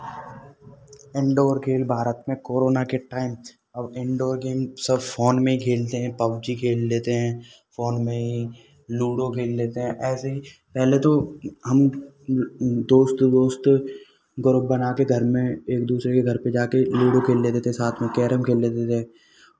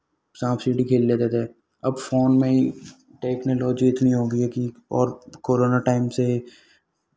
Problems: none marked